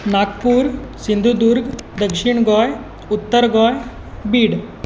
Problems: constant background noise